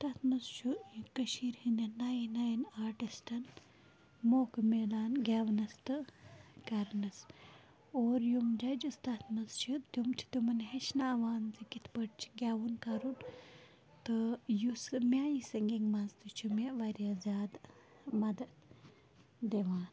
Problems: low volume